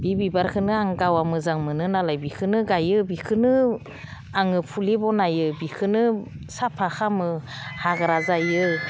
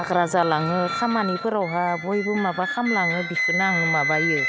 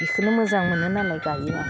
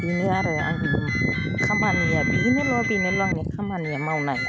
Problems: background sounds at intervals